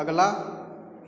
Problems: constant background noise